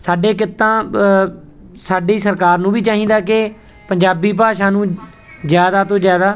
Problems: background sounds at intervals